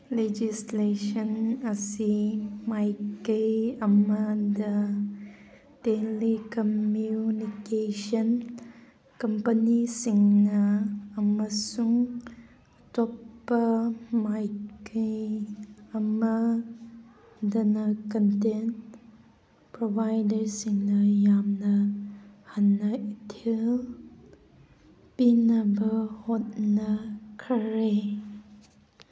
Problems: background sounds at intervals